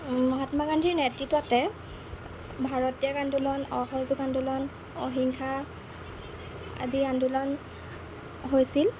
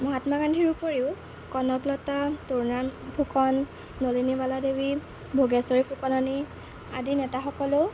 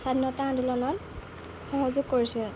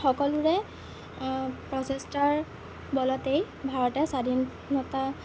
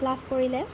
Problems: constant background noise